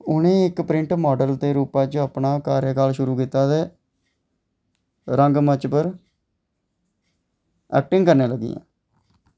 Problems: none marked